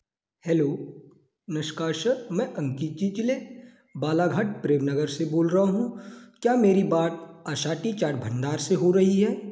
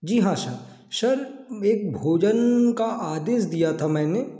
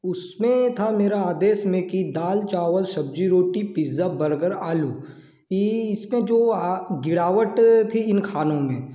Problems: background sounds at intervals, echo